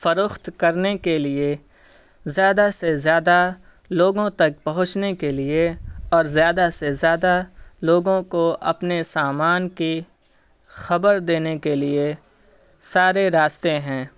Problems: none marked